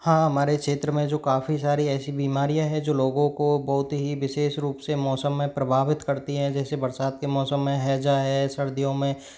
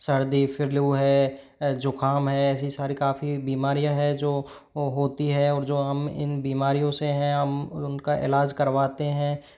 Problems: none marked